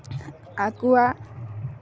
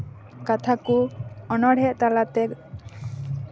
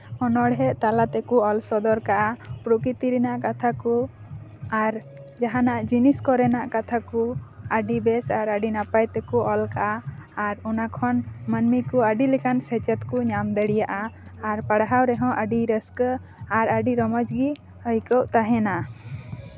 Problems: constant background noise